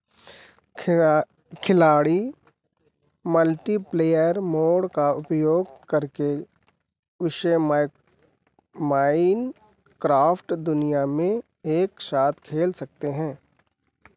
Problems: constant background noise